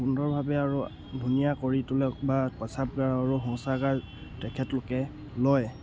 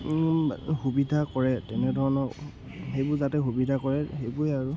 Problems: background sounds at intervals